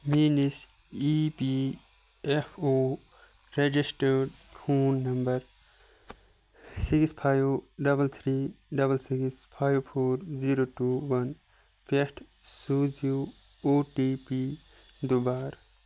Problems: background sounds at intervals